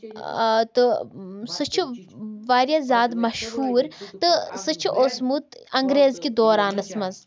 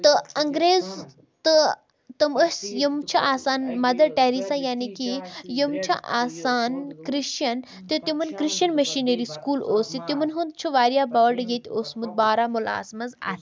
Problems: continuous background conversations